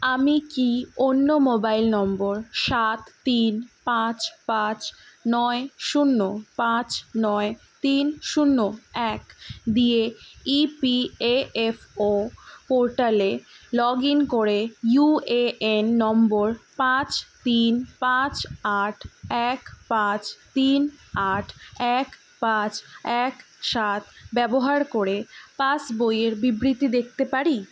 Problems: none marked